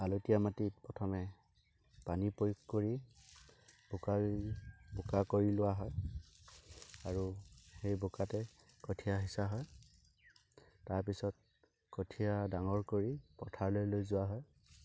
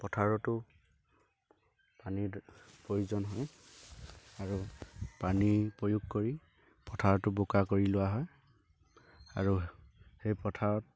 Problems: constant background noise, background conversations at intervals